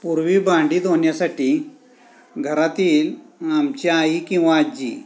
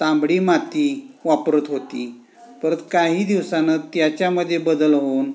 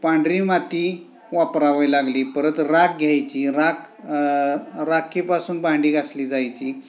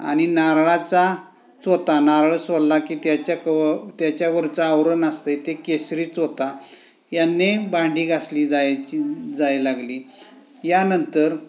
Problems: constant background noise, continuous background conversations